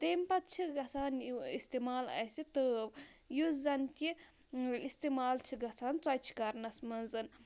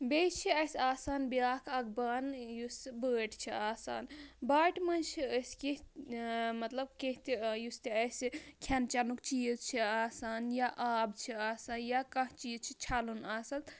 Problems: none marked